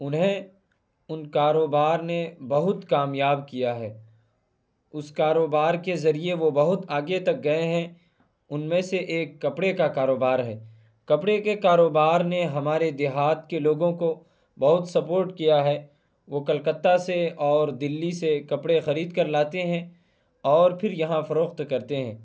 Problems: none marked